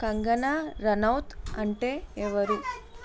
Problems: constant background noise